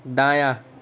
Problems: constant background noise